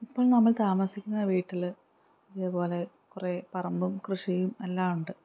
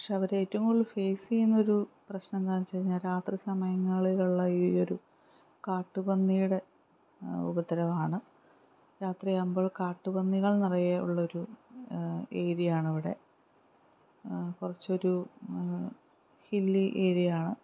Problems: none marked